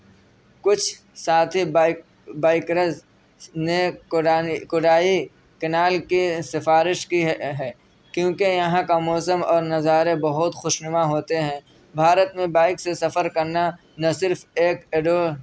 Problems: background sounds at intervals, background conversations at intervals